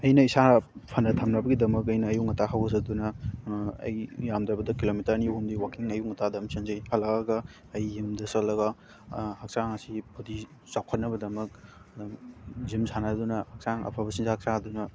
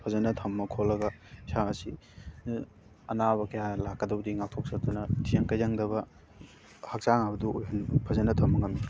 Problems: constant background noise